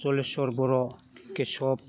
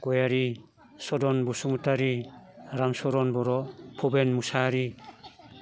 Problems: constant background noise